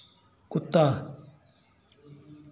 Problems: none marked